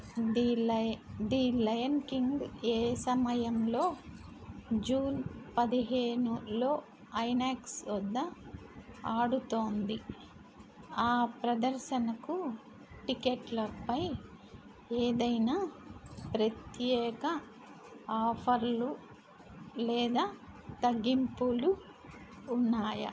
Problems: constant background noise